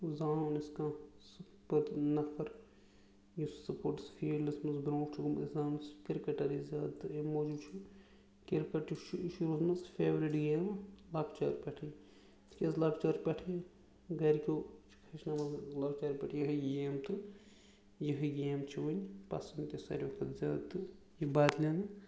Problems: background sounds at intervals